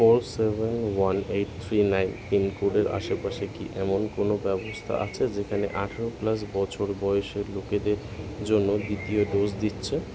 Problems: constant background noise